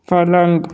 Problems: none marked